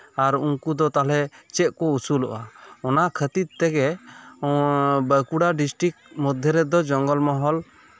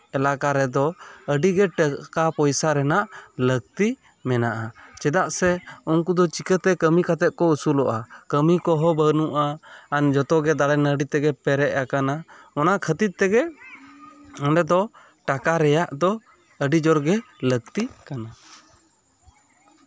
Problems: constant background noise